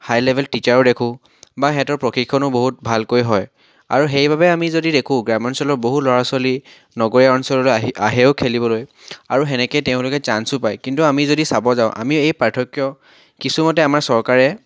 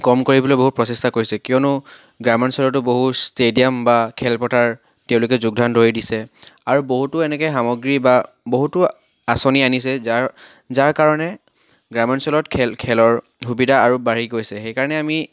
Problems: background sounds at intervals, background conversations at intervals